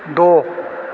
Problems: constant background noise